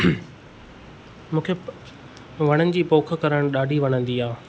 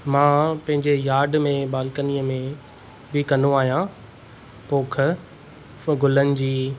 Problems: constant background noise